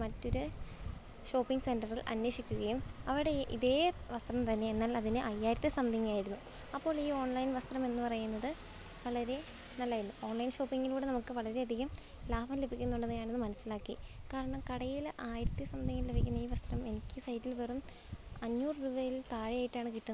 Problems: background sounds at intervals